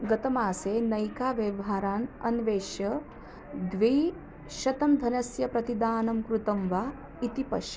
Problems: constant background noise